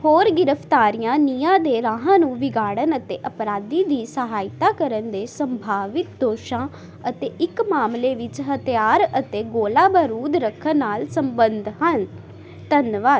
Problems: constant background noise